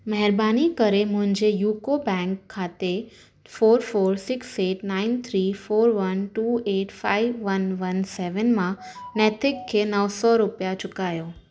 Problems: none marked